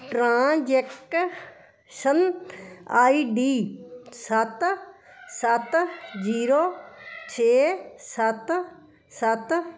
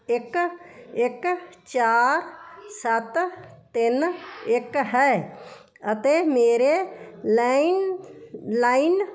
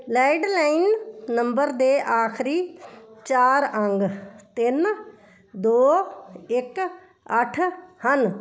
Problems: continuous background conversations